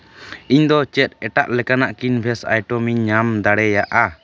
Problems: background sounds at intervals